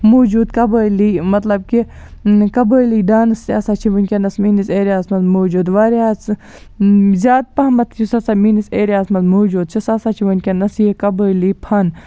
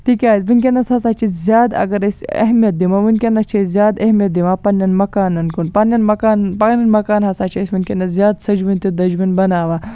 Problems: background sounds at intervals